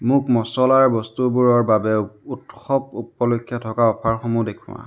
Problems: constant background noise